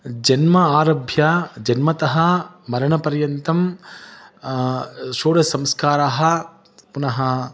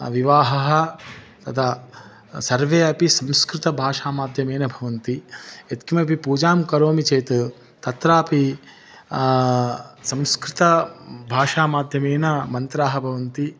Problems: background sounds at intervals